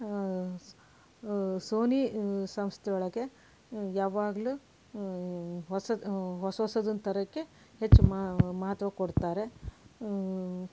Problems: background sounds at intervals